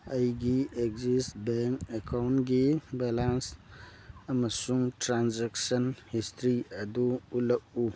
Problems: background sounds at intervals